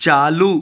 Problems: none marked